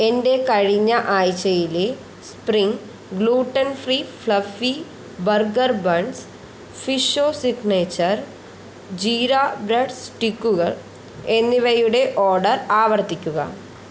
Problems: constant background noise